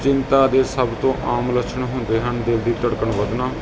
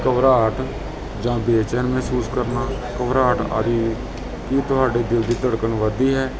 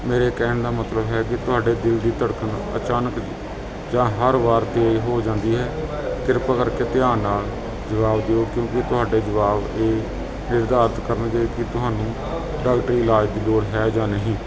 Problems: constant background noise